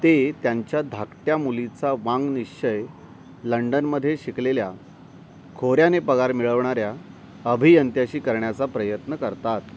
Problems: constant background noise